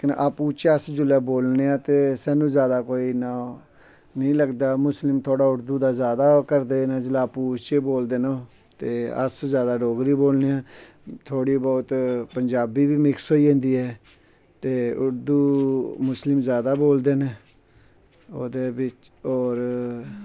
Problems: background sounds at intervals